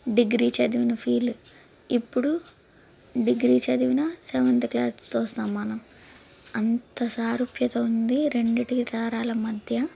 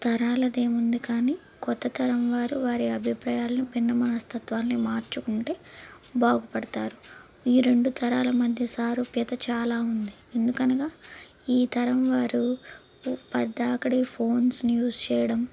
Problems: background sounds at intervals